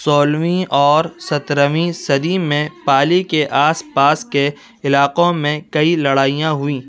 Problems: background sounds at intervals, background conversations at intervals